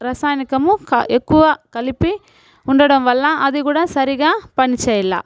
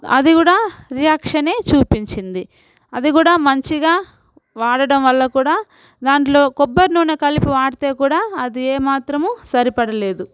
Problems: background sounds at intervals